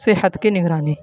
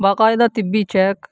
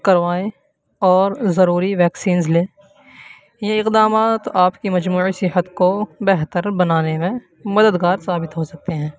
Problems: constant background noise